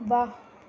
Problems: none marked